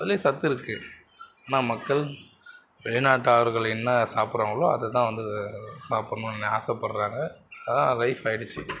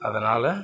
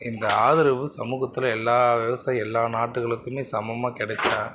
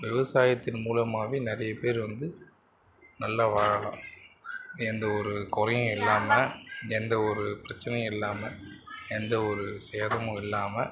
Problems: background sounds at intervals